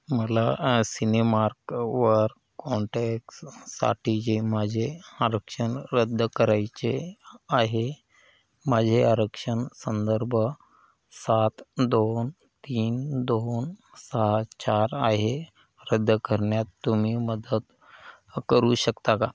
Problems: none marked